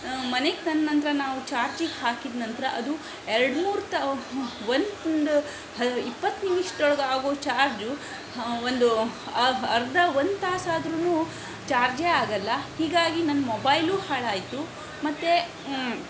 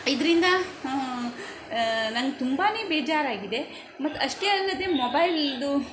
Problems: background sounds at intervals